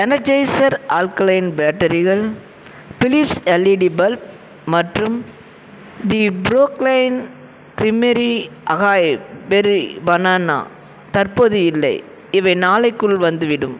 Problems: background sounds at intervals